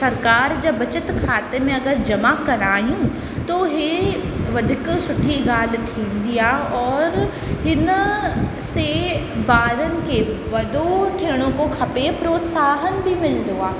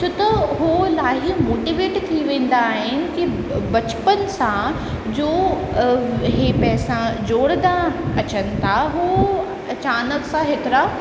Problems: constant background noise, echo